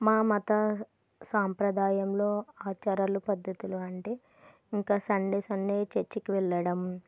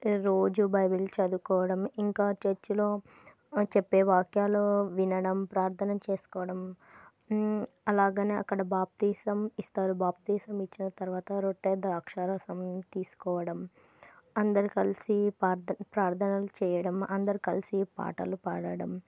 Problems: none marked